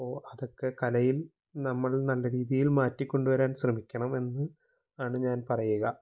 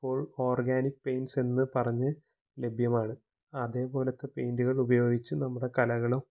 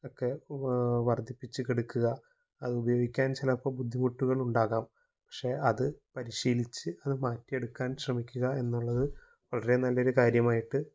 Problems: low volume